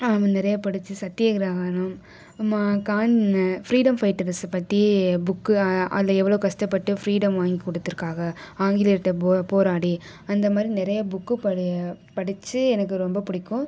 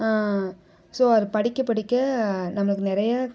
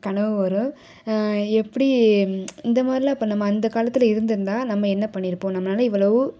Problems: background conversations at intervals